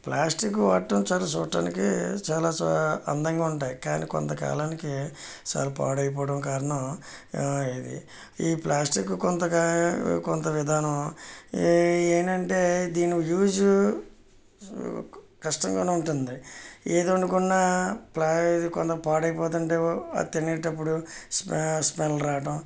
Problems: background sounds at intervals